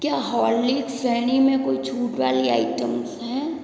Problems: echo